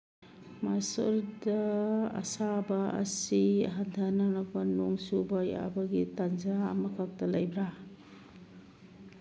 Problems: constant background noise